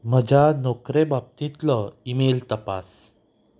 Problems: background sounds at intervals